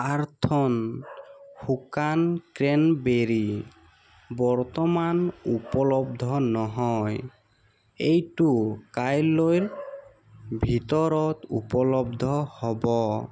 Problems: constant background noise